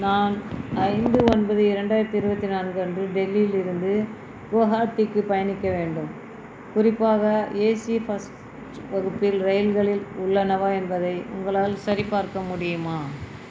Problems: constant background noise